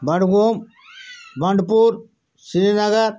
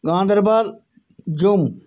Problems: background sounds at intervals